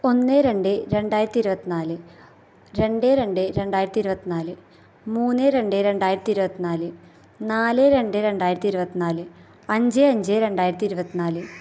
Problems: background sounds at intervals